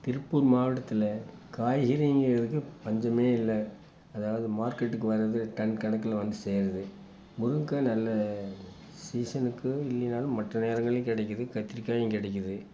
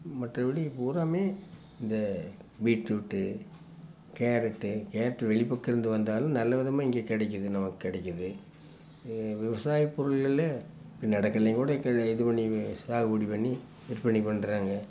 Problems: constant background noise